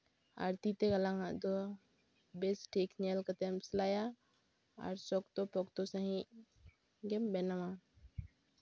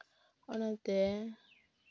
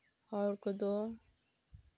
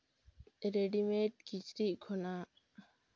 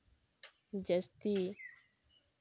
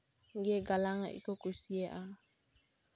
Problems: background sounds at intervals